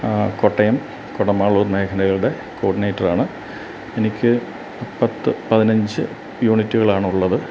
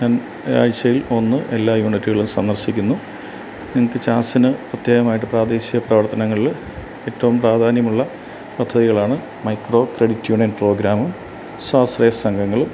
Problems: none marked